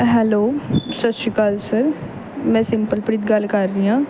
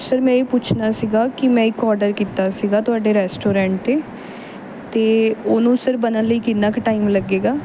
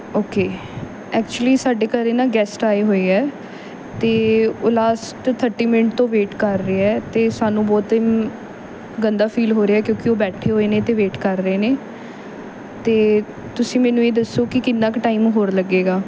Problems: background sounds at intervals